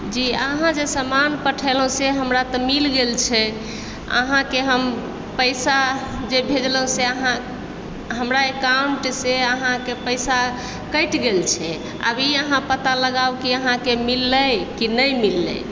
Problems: background sounds at intervals